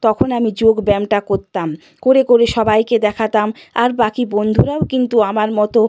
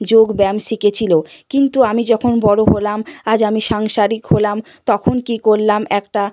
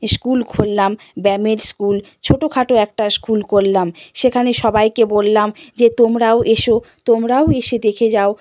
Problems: none marked